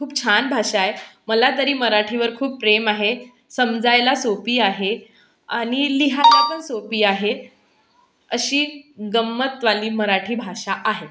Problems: constant background noise